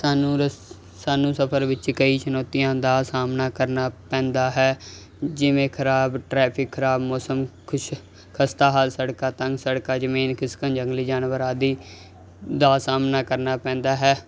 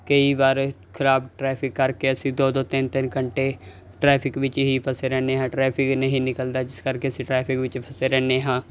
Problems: none marked